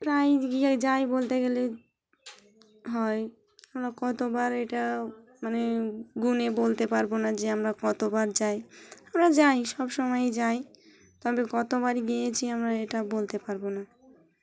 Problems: background sounds at intervals, background conversations at intervals